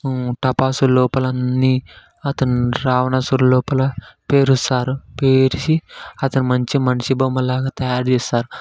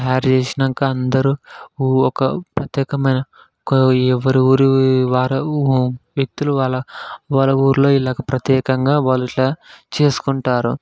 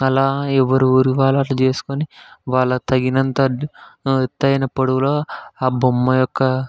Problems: background sounds at intervals, background conversations at intervals